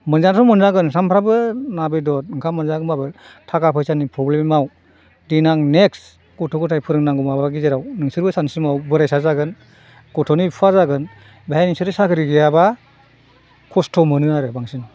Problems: none marked